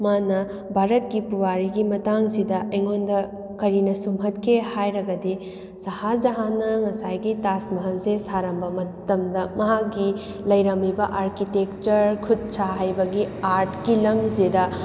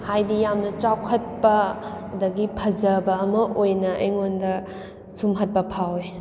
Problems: background sounds at intervals